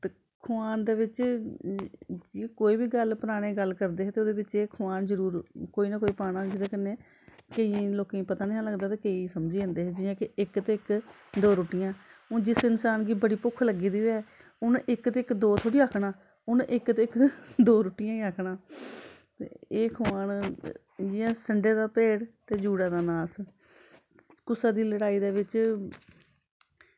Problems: constant background noise